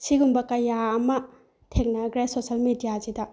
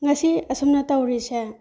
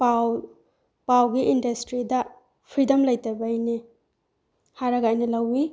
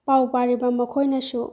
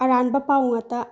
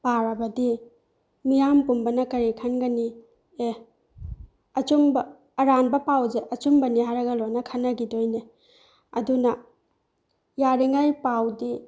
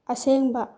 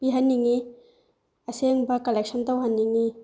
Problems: none marked